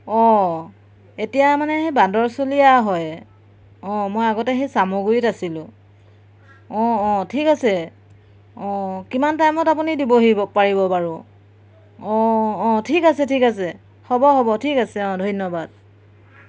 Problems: background sounds at intervals